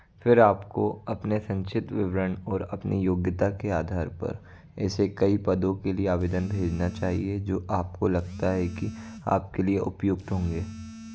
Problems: constant background noise